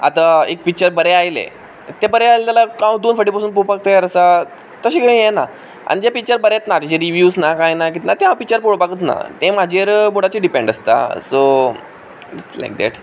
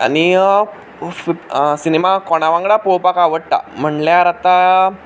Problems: background sounds at intervals